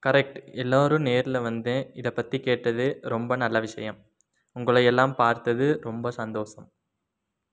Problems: none marked